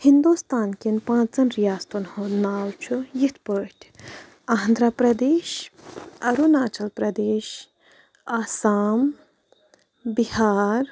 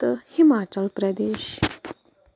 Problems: none marked